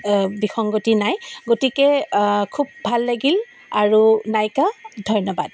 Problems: constant background noise